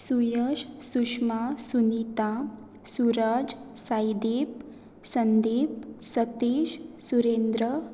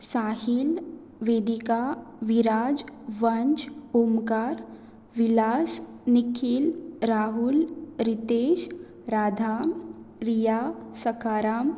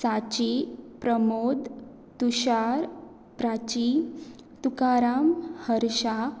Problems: none marked